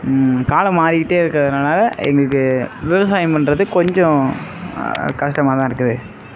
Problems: background sounds at intervals